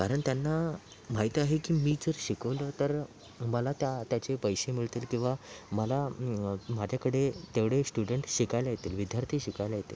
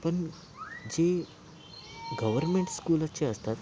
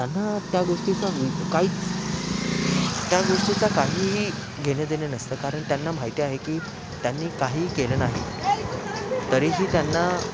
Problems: constant background noise, background conversations at intervals, low volume